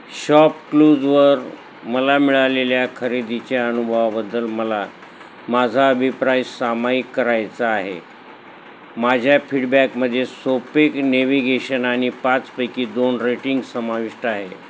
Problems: constant background noise